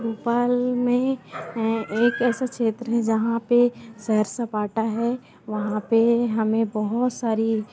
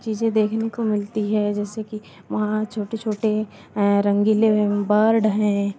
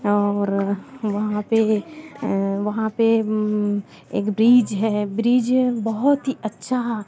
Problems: none marked